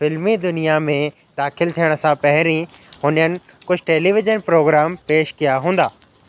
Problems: constant background noise, echo